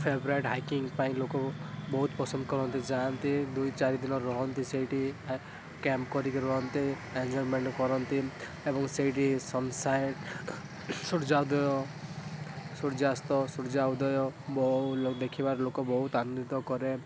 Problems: constant background noise